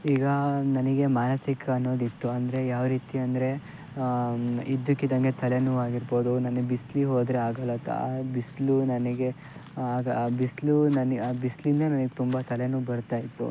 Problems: background sounds at intervals